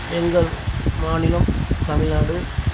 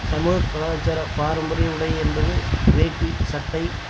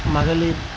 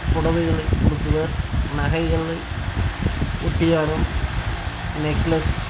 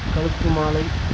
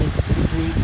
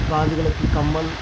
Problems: constant background noise